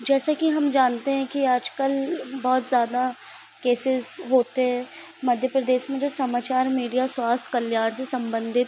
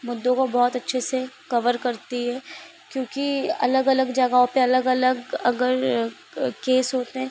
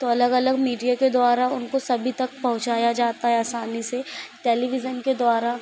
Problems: constant background noise